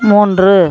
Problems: background sounds at intervals